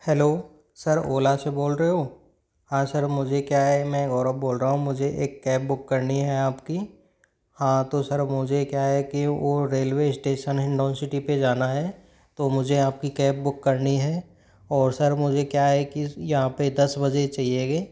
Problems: none marked